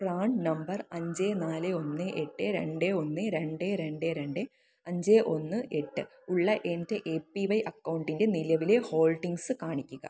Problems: low volume